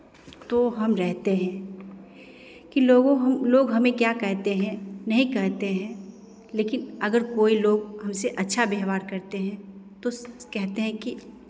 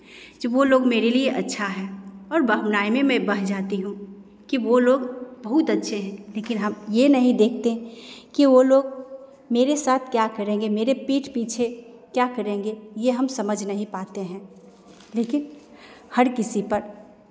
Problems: constant background noise, echo